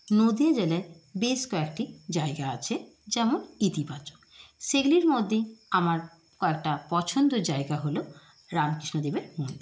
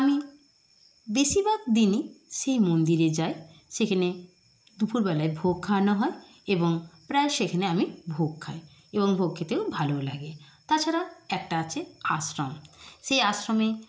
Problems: constant background noise